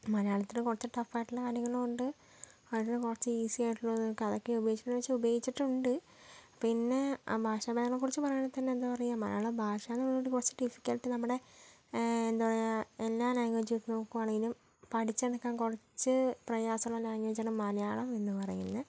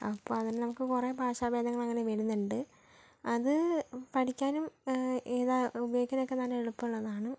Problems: low volume